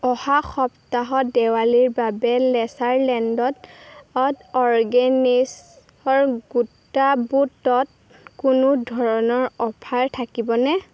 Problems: constant background noise